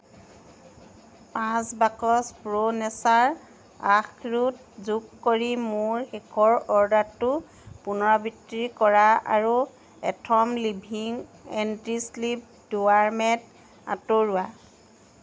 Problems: constant background noise